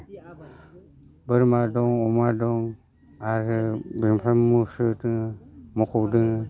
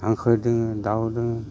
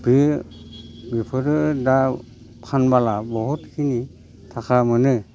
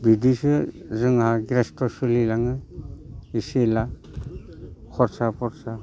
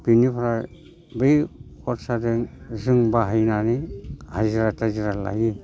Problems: constant background noise